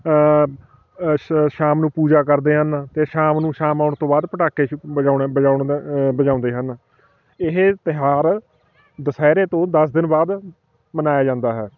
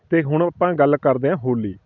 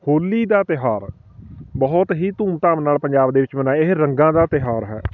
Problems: background sounds at intervals, continuous background conversations